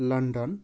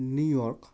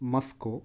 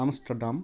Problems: none marked